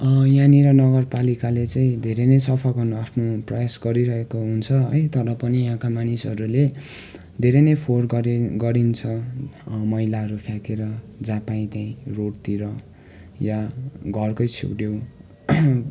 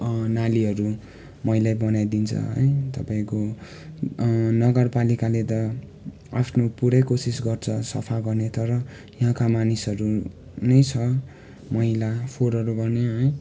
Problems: constant background noise